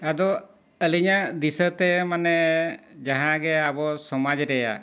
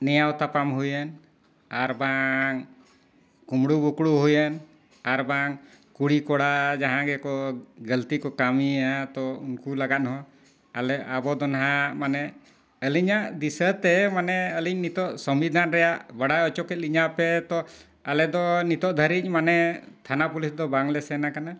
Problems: constant background noise